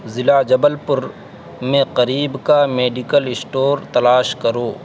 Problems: constant background noise